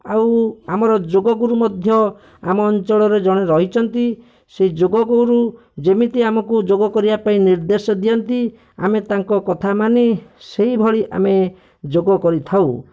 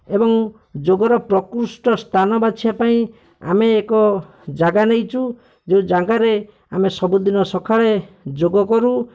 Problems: none marked